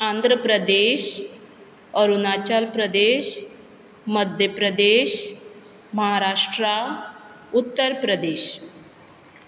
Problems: background sounds at intervals